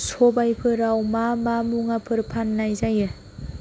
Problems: none marked